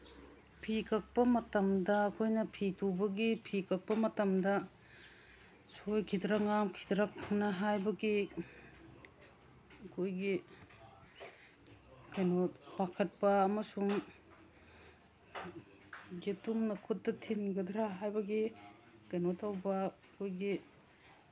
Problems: none marked